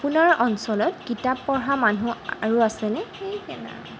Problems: background sounds at intervals